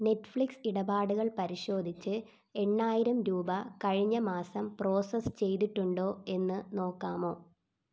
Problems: low volume